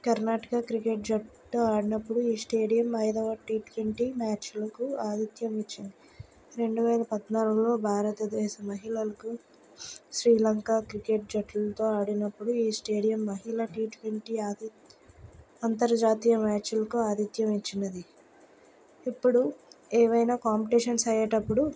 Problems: none marked